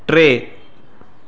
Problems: constant background noise, echo